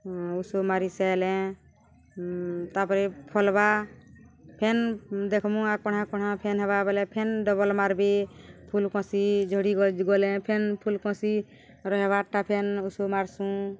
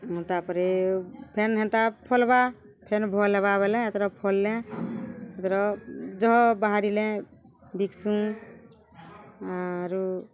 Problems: none marked